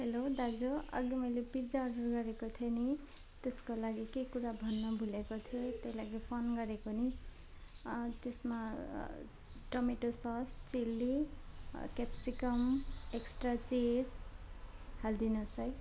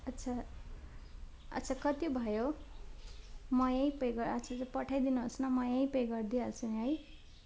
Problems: constant background noise